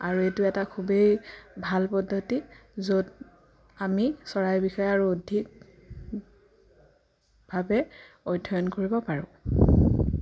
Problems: none marked